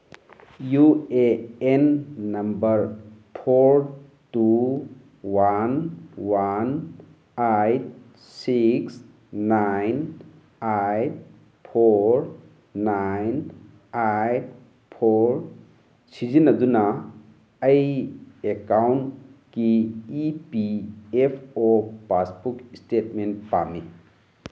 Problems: background sounds at intervals